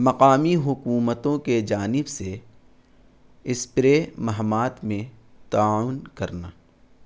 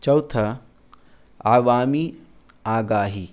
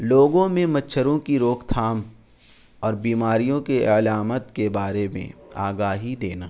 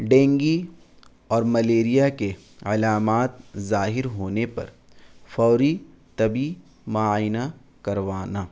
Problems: constant background noise